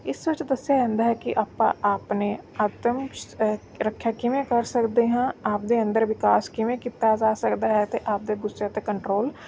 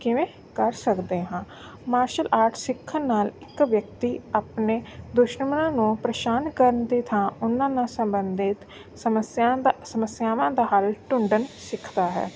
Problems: none marked